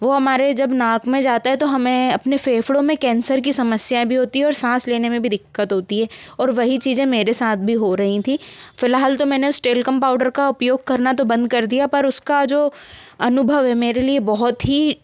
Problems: constant background noise